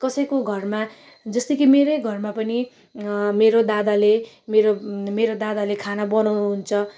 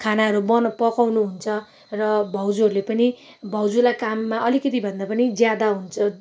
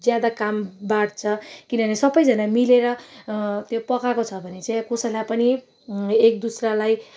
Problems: none marked